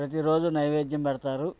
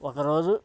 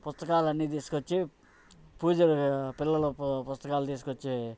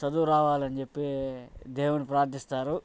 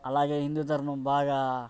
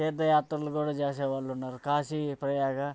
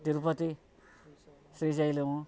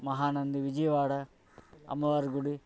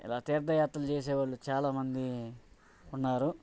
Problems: background sounds at intervals